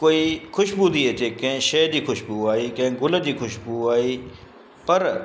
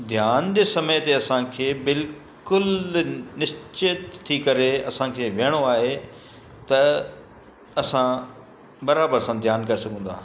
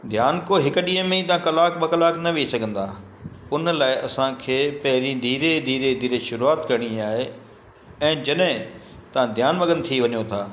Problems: constant background noise, echo